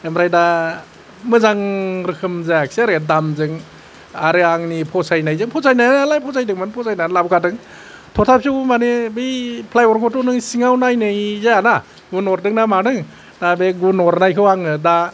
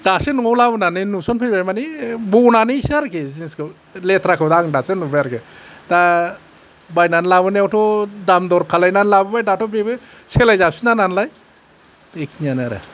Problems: none marked